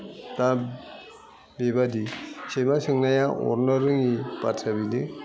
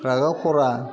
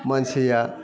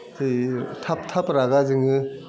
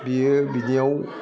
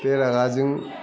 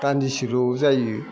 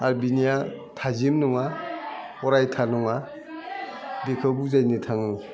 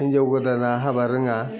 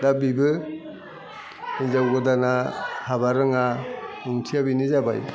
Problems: constant background noise